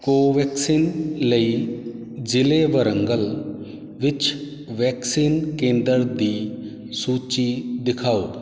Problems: none marked